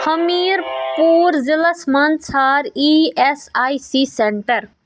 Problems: background sounds at intervals